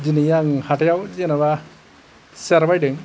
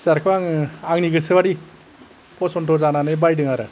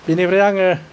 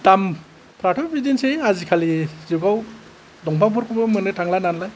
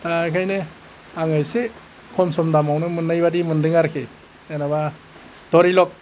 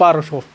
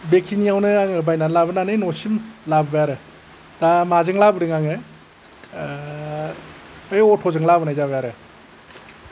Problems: none marked